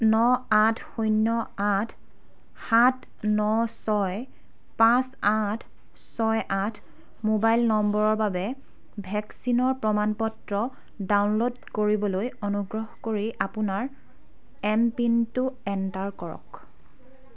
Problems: background conversations at intervals